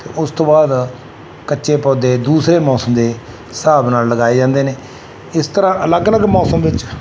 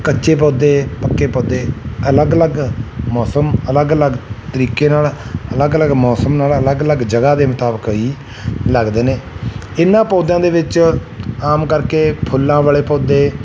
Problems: none marked